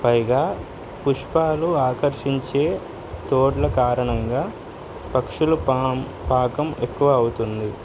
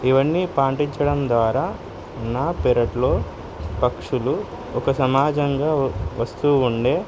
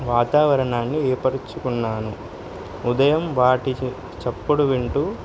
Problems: constant background noise